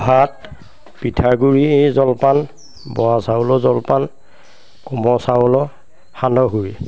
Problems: constant background noise, background conversations at intervals